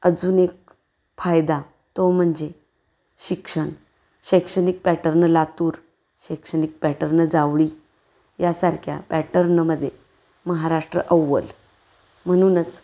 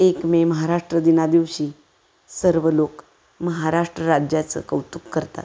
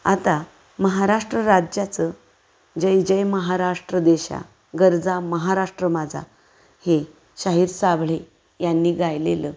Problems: constant background noise